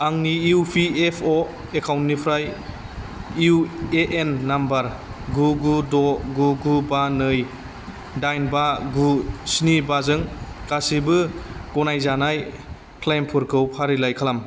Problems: constant background noise